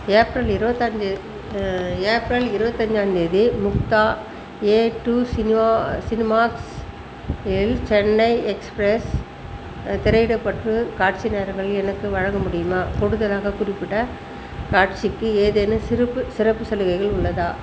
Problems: constant background noise